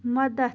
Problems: none marked